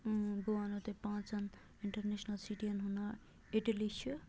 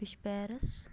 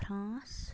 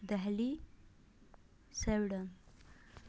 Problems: low volume